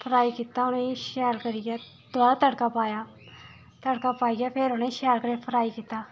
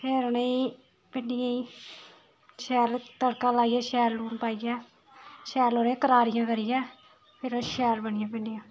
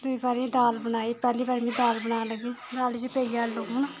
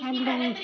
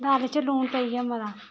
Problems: background sounds at intervals